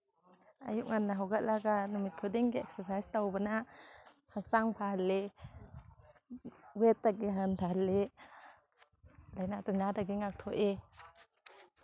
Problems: none marked